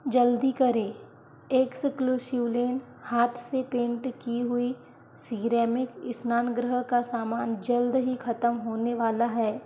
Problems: background sounds at intervals